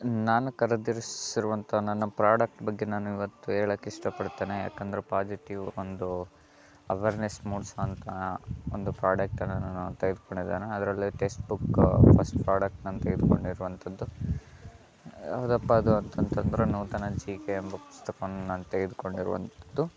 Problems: constant background noise